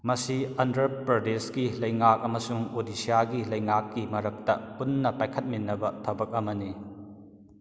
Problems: echo